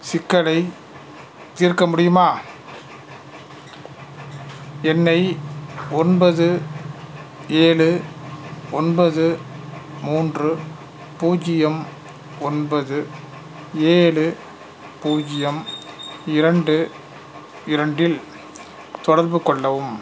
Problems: background sounds at intervals